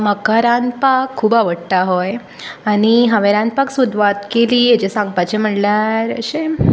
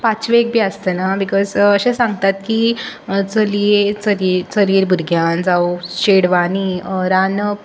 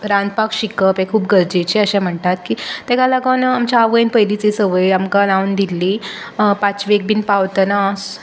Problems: constant background noise